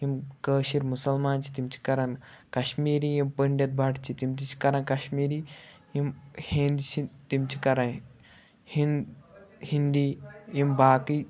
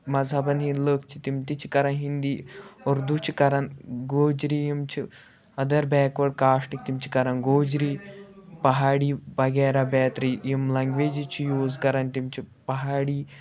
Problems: background sounds at intervals